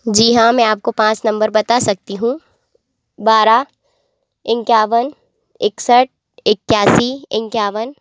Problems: constant background noise